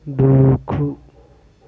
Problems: none marked